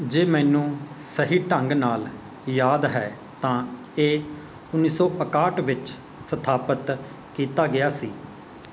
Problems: constant background noise